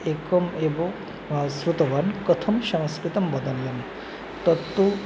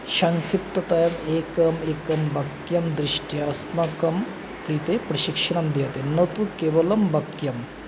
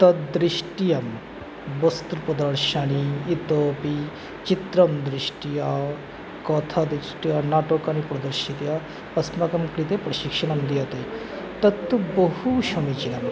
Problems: constant background noise, background conversations at intervals